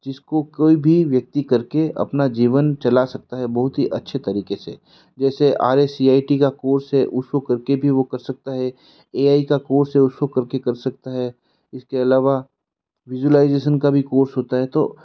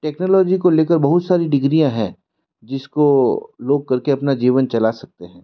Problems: none marked